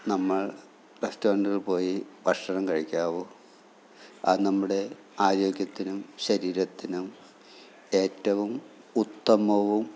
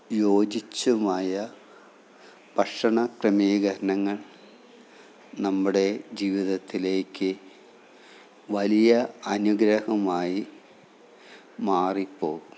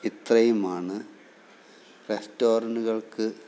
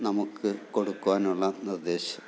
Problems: low volume